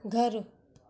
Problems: constant background noise, low volume